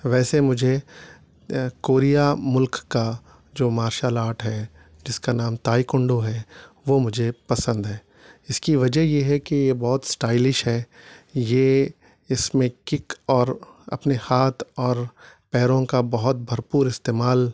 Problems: none marked